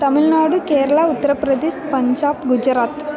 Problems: constant background noise